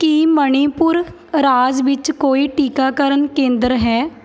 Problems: background sounds at intervals, background conversations at intervals